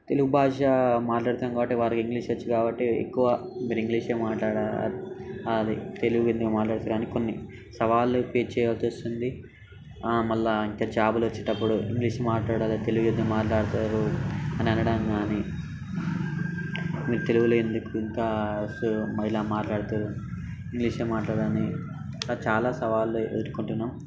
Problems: constant background noise, background conversations at intervals